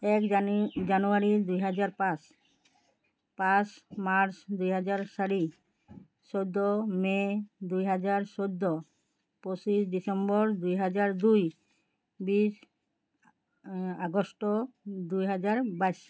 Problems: background sounds at intervals